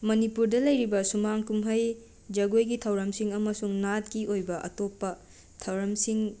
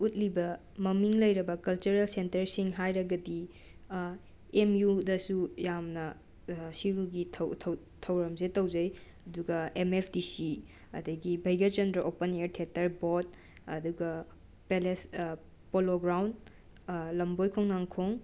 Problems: constant background noise